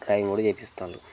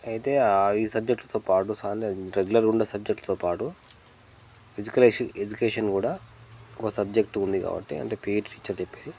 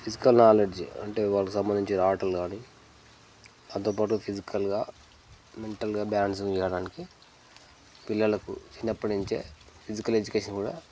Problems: constant background noise